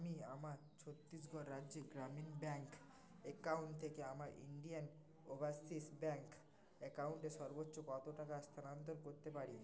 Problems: constant background noise, continuous background conversations, low volume